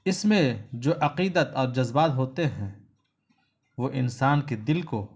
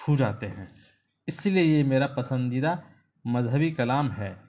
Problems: constant background noise